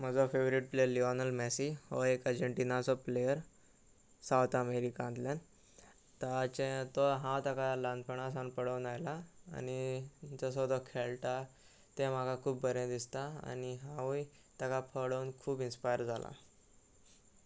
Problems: none marked